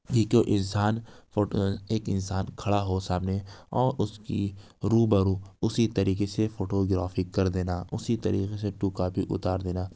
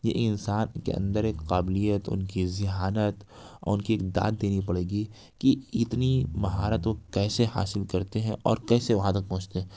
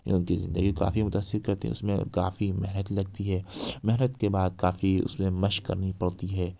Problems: none marked